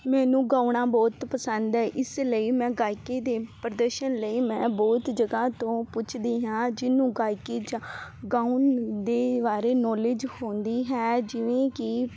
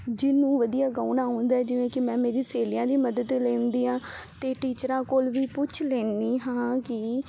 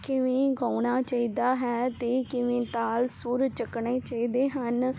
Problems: constant background noise